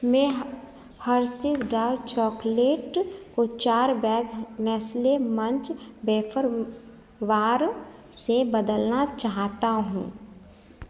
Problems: none marked